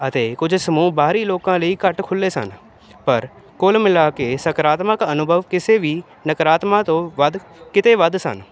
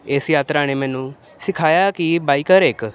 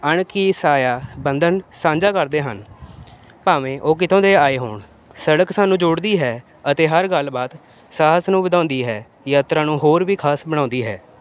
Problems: constant background noise